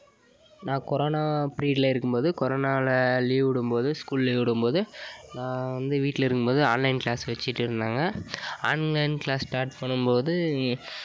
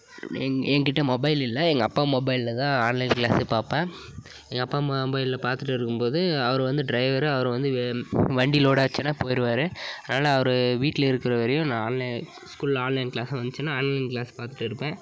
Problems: background conversations at intervals